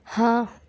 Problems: constant background noise